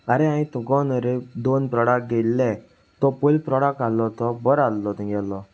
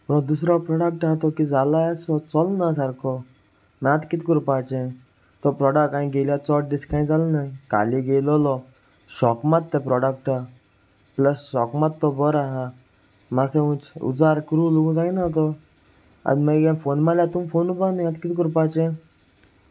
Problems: constant background noise